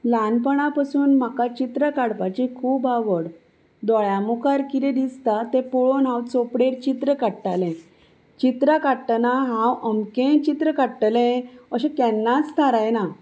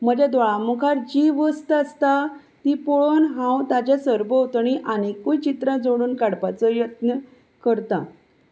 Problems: none marked